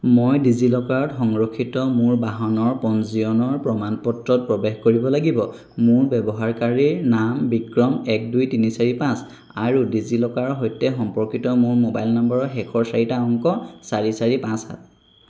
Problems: constant background noise